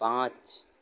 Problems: none marked